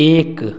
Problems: constant background noise